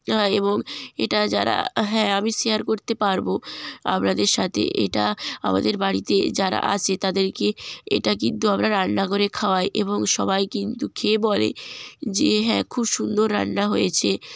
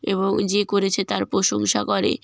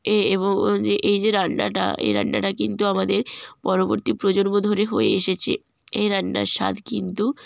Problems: none marked